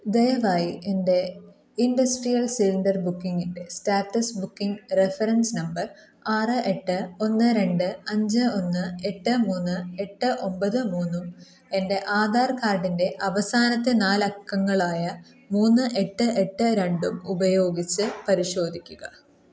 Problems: background sounds at intervals